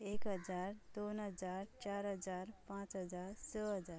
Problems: none marked